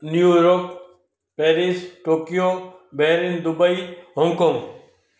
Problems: echo